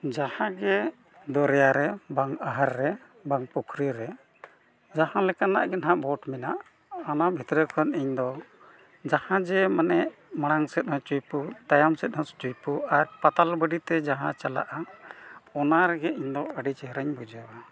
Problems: background sounds at intervals